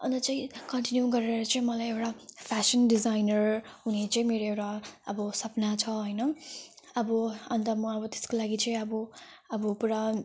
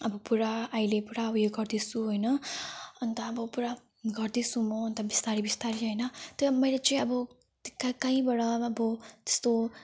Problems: none marked